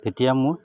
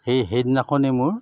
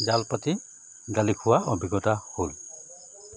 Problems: constant background noise